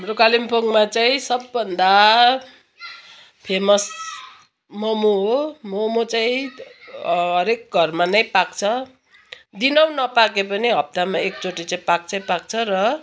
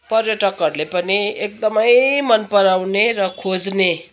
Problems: constant background noise